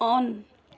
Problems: none marked